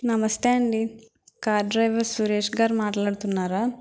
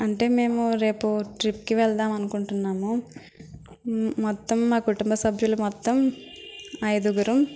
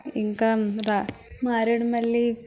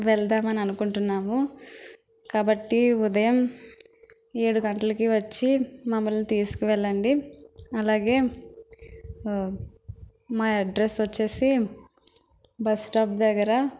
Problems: none marked